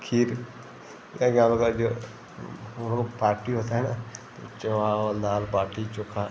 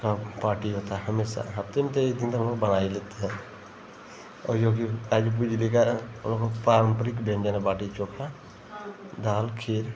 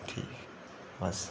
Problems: constant background noise